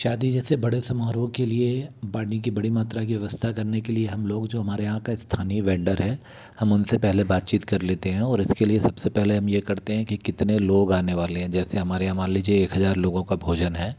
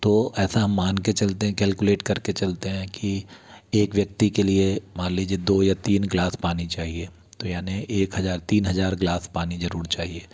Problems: none marked